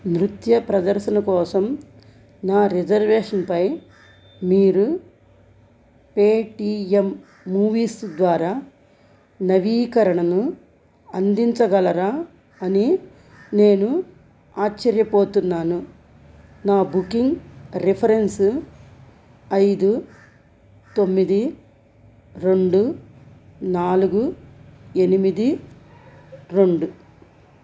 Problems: constant background noise